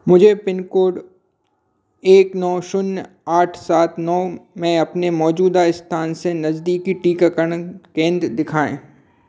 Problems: constant background noise